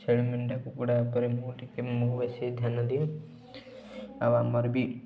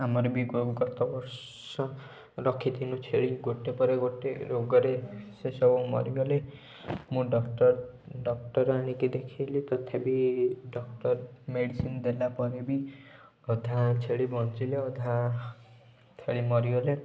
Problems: background sounds at intervals